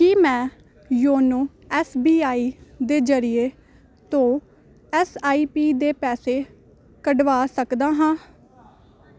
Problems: none marked